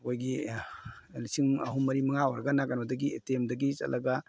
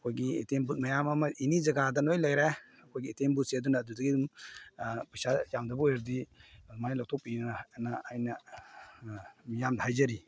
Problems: none marked